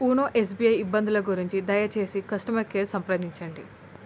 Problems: constant background noise